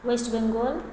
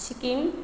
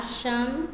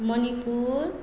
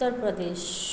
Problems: none marked